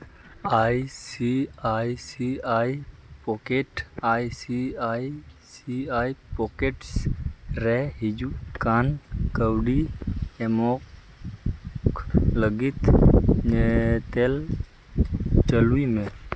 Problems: none marked